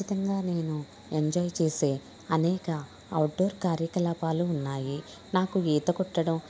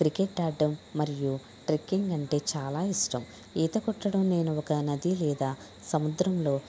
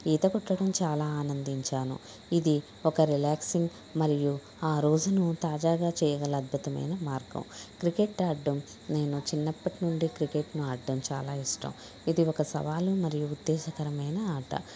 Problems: background conversations at intervals